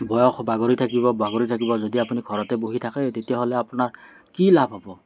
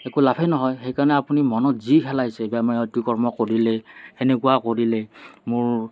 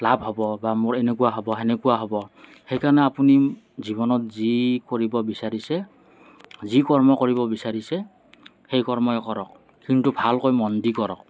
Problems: none marked